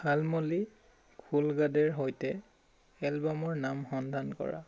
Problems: constant background noise